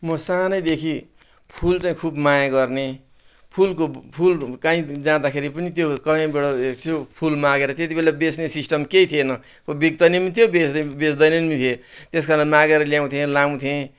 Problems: none marked